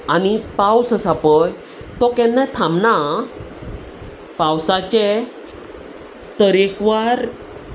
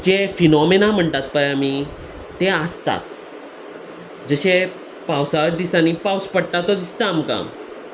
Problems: constant background noise